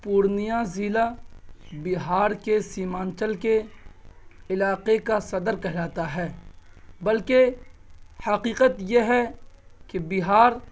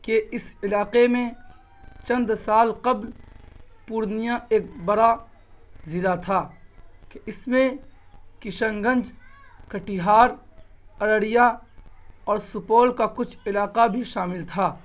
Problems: constant background noise